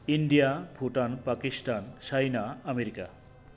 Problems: constant background noise